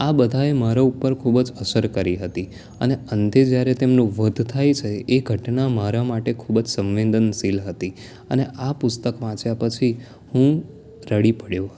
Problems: none marked